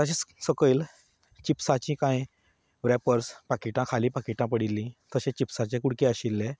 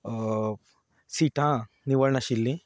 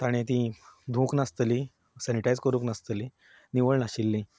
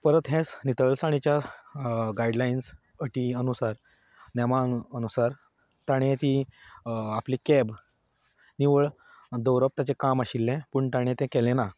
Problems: background conversations at intervals